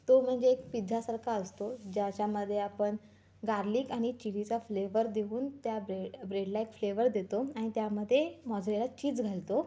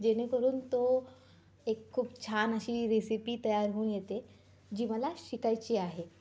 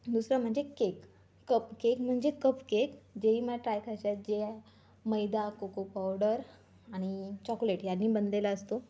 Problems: background sounds at intervals, background conversations at intervals